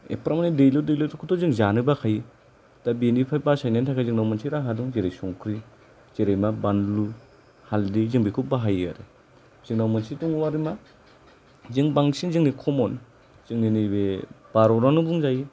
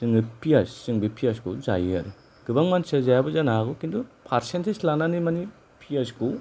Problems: none marked